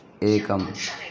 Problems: background sounds at intervals